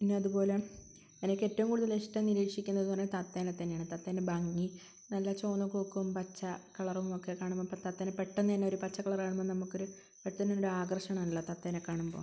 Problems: constant background noise